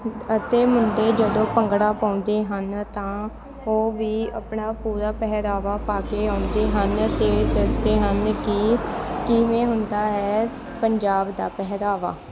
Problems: constant background noise, continuous background conversations